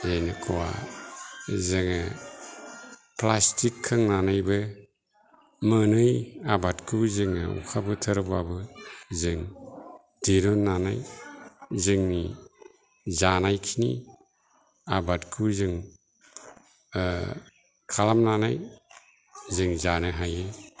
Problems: low volume